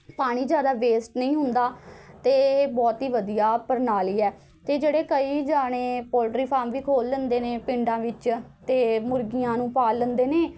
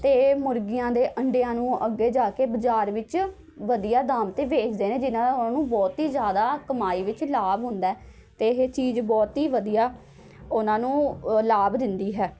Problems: background sounds at intervals